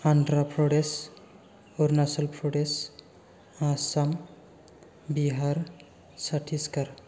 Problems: none marked